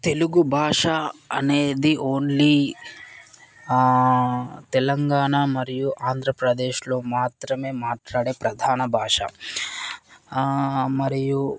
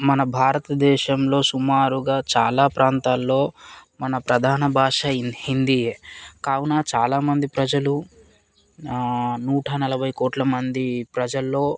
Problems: constant background noise, background conversations at intervals